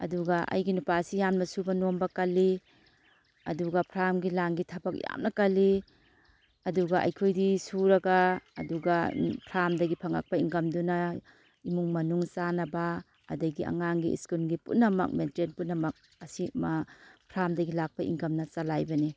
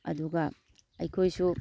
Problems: none marked